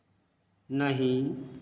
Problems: constant background noise